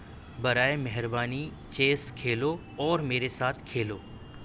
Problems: none marked